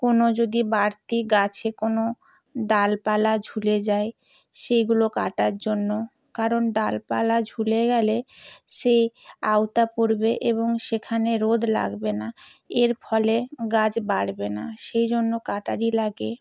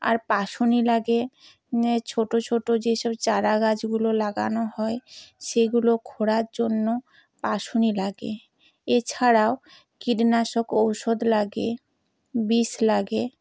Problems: none marked